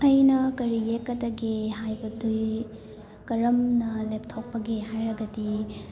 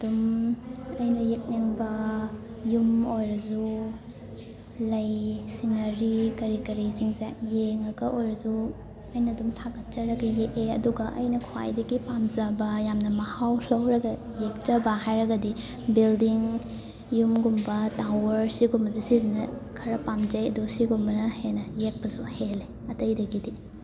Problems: constant background noise, continuous background conversations